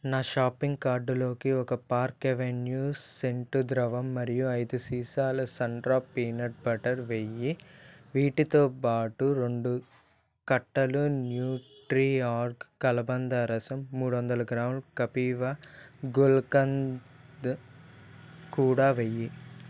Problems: background sounds at intervals